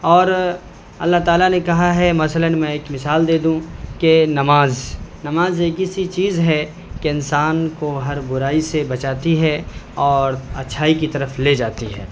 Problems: none marked